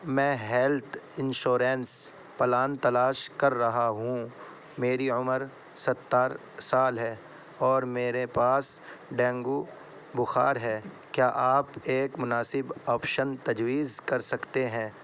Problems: constant background noise